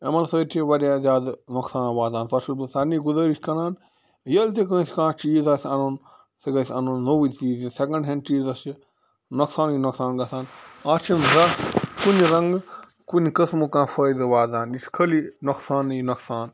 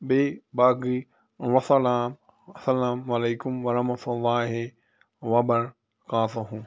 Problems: background sounds at intervals